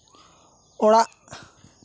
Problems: background sounds at intervals, continuous background conversations